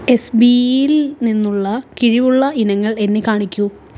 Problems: background sounds at intervals